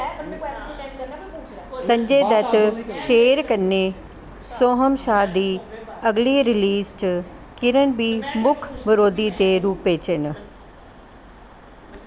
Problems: constant background noise